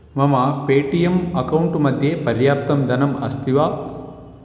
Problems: none marked